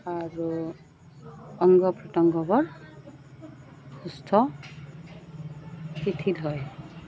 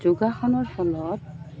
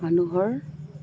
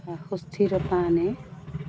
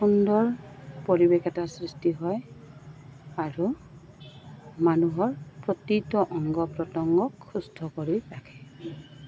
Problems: constant background noise, background conversations at intervals